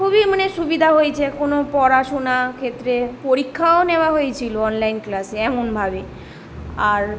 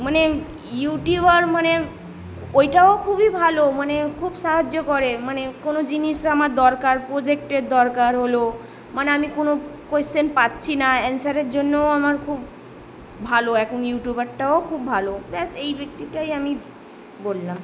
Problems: background sounds at intervals